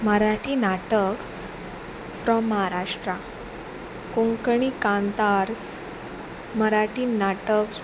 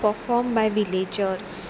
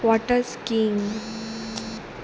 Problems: background sounds at intervals